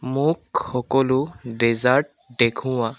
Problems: constant background noise